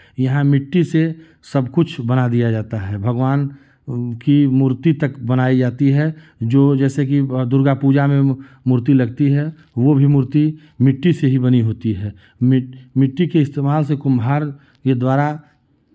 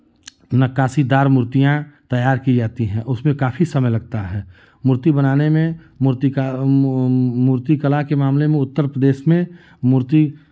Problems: constant background noise, continuous background conversations